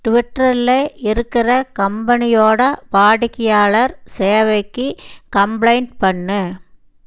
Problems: none marked